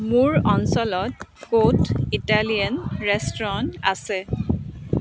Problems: constant background noise, continuous background conversations